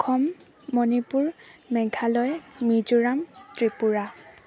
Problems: constant background noise